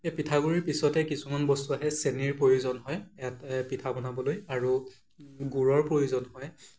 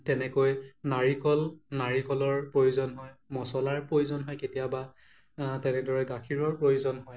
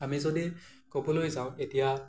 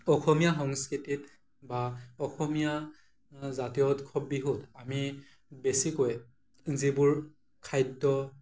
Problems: none marked